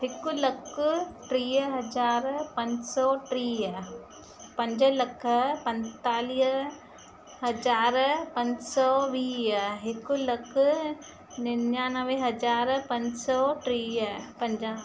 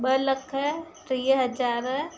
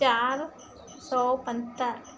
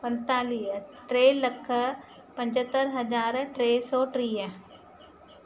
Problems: constant background noise, echo